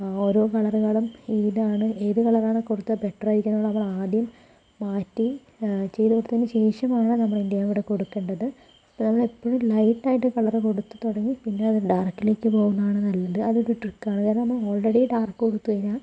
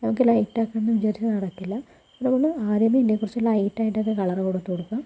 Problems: low volume